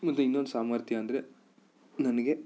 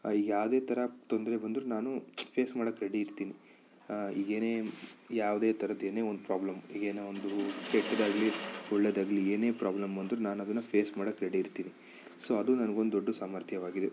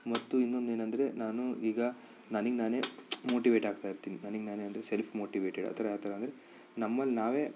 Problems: none marked